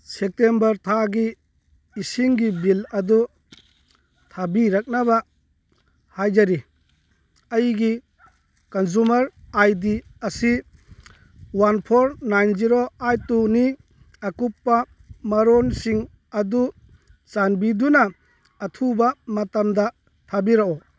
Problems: none marked